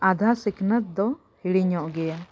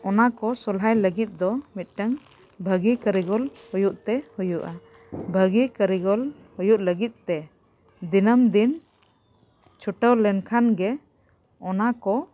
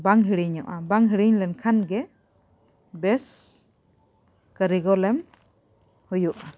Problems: background sounds at intervals